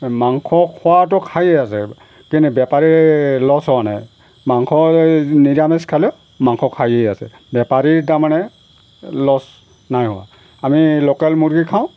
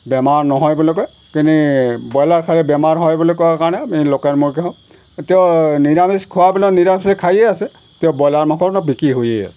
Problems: background sounds at intervals